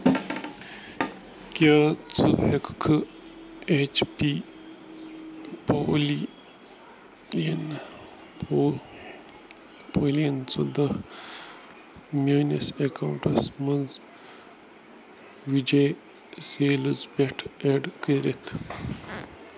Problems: background sounds at intervals